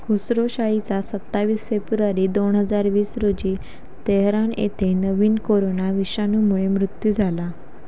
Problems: background sounds at intervals